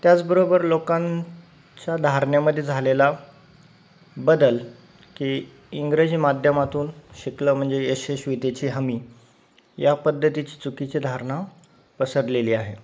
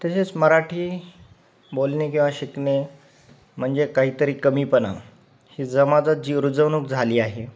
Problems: none marked